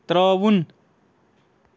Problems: constant background noise